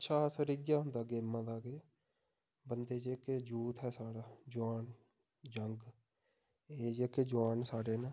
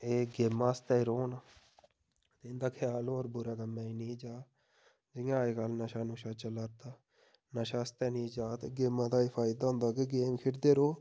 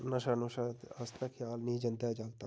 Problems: none marked